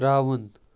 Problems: background sounds at intervals